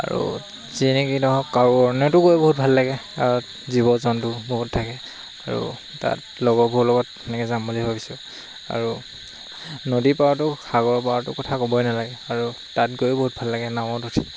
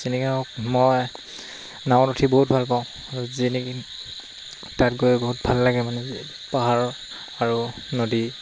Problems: constant background noise